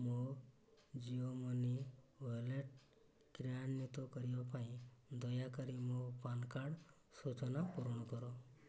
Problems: low volume